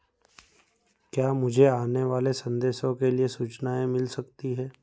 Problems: background sounds at intervals